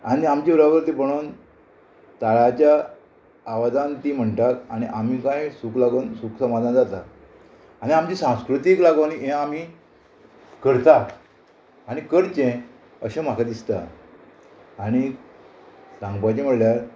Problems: constant background noise